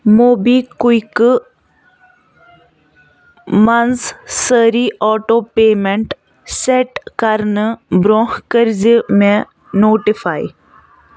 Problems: constant background noise